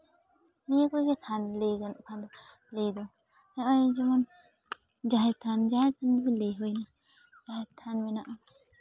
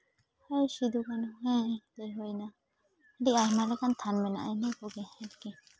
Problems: background conversations at intervals